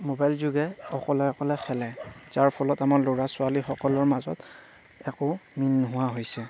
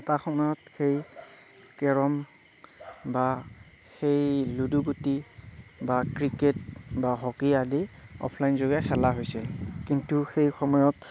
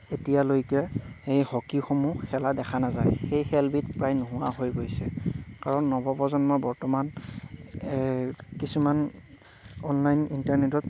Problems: low volume